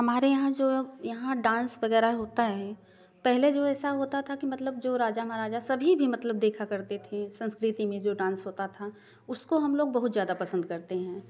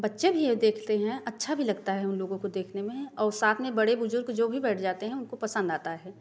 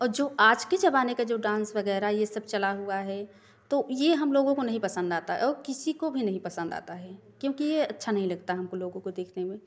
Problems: none marked